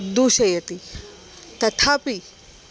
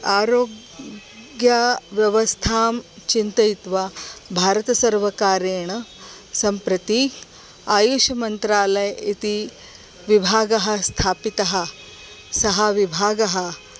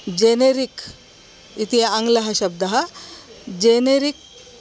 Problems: constant background noise